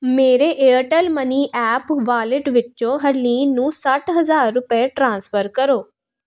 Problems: constant background noise